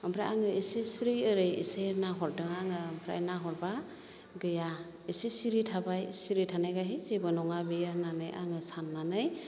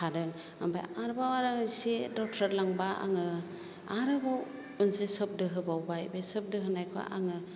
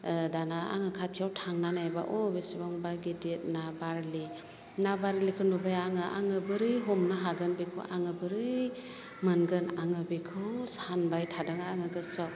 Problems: low volume